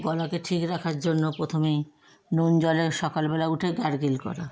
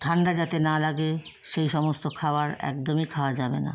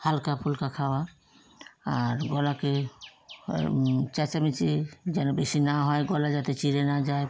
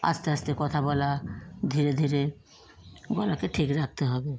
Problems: constant background noise, background conversations at intervals